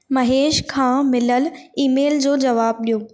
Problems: echo